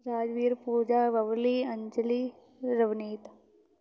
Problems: constant background noise